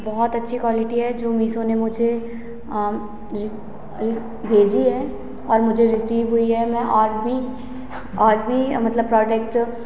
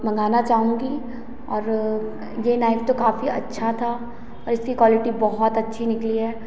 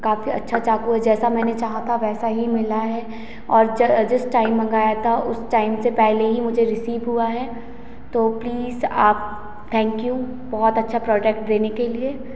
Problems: constant background noise, echo